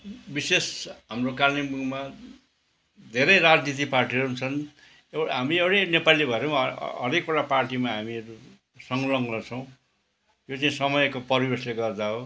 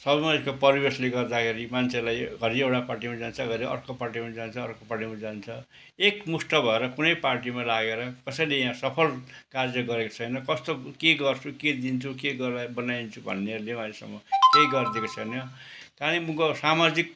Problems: constant background noise